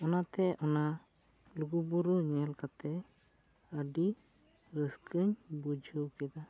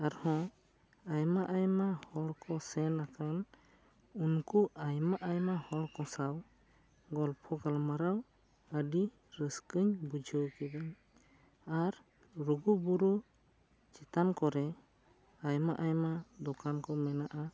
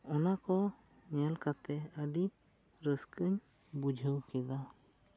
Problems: low volume